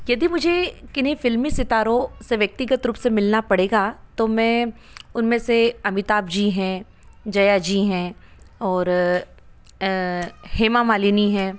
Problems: background sounds at intervals